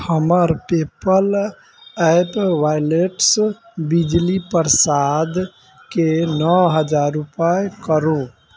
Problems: background sounds at intervals